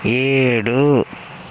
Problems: constant background noise